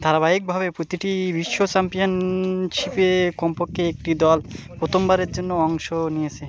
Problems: none marked